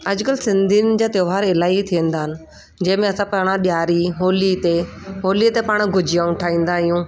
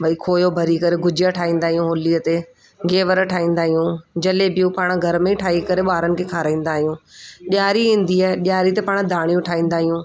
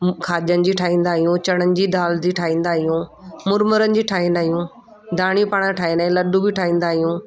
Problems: constant background noise